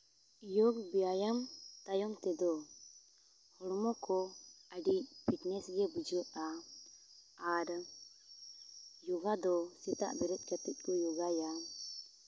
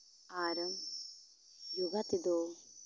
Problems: background sounds at intervals